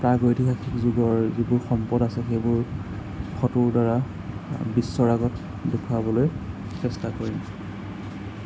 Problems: constant background noise